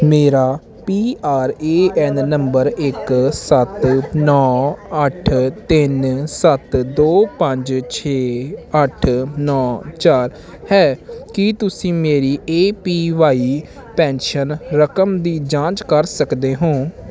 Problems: continuous background conversations